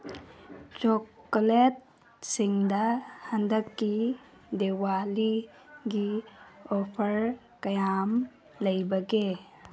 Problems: background sounds at intervals